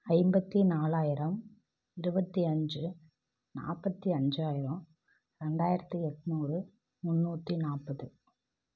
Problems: low volume